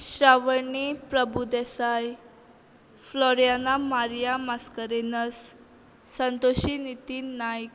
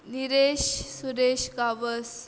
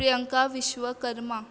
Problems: constant background noise